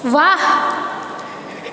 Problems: background sounds at intervals